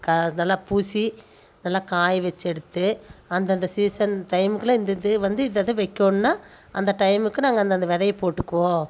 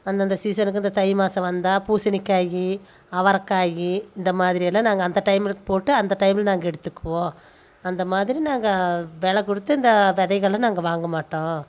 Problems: none marked